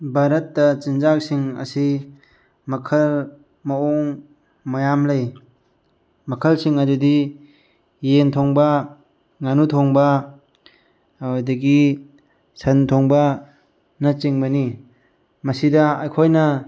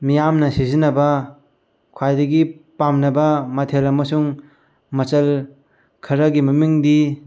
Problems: none marked